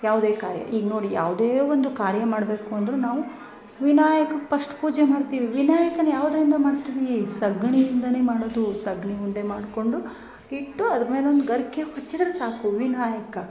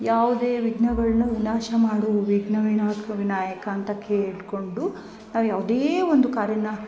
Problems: background sounds at intervals